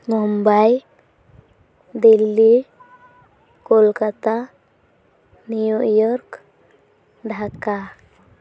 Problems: constant background noise, background conversations at intervals